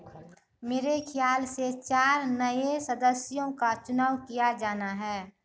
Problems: none marked